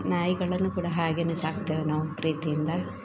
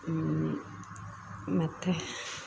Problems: background sounds at intervals